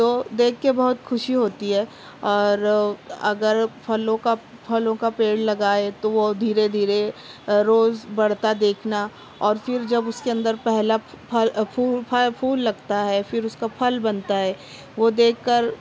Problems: constant background noise